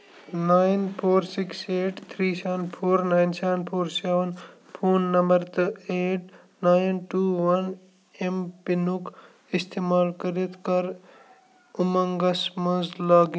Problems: constant background noise, low volume